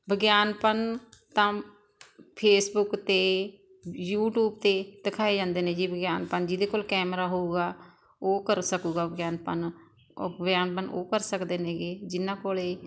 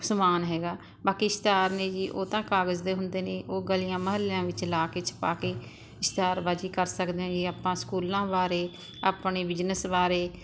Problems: constant background noise